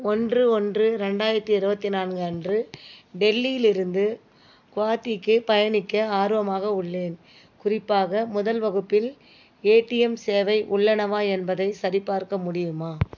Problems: background sounds at intervals